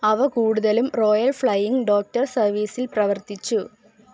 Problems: low volume